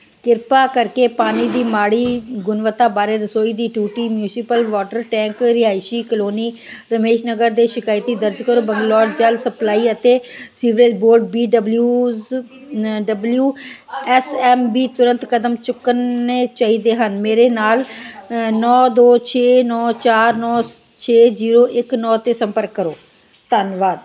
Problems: background conversations at intervals